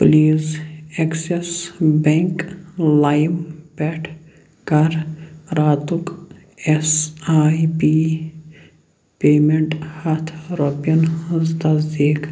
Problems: none marked